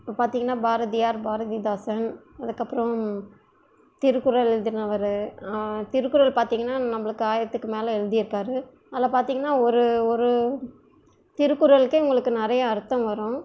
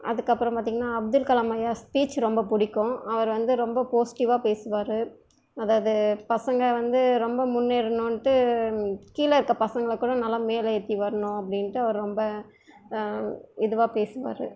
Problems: low volume